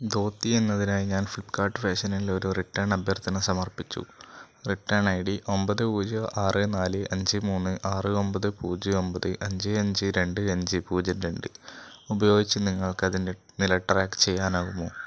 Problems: none marked